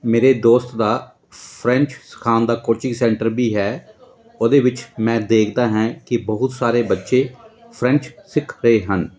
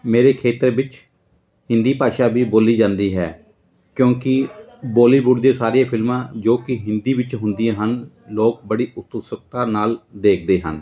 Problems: continuous background conversations